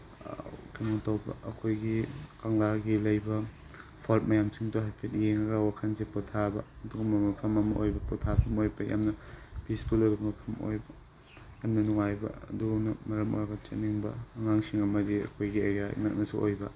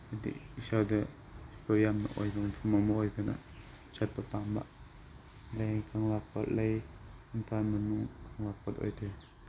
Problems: background sounds at intervals